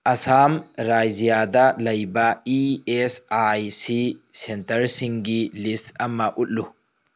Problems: background sounds at intervals